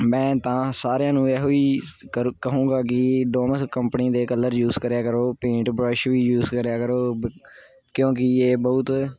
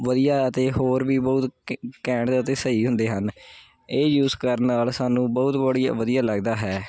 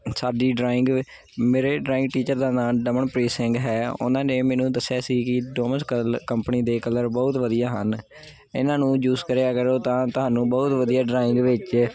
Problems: none marked